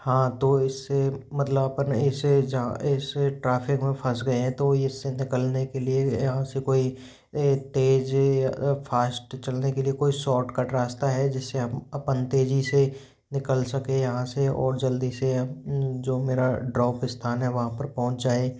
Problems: background sounds at intervals